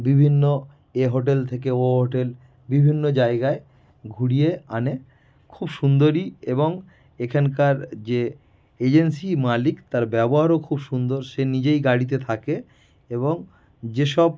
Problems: none marked